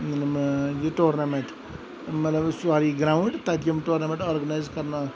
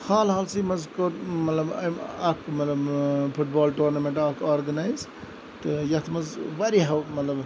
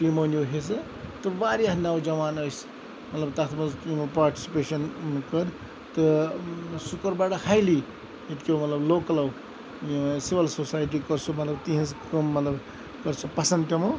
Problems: constant background noise